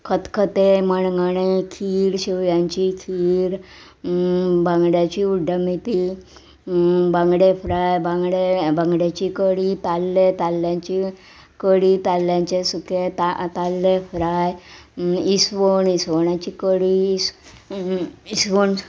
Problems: background sounds at intervals